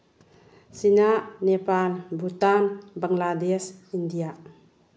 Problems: low volume